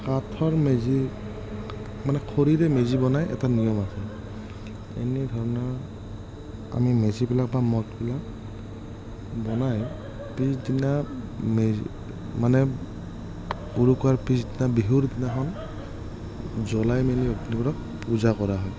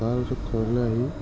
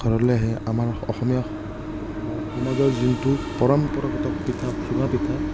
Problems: none marked